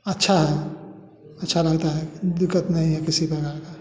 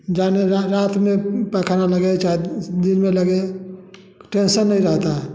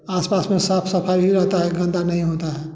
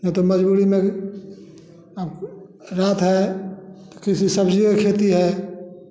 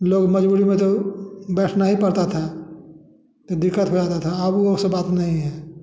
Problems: none marked